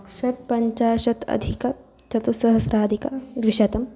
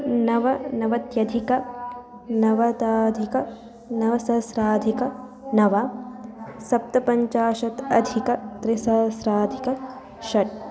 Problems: none marked